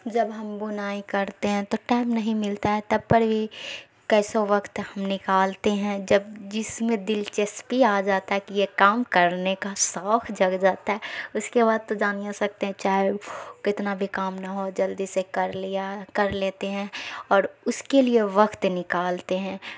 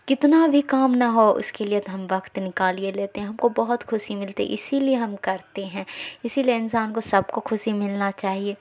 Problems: none marked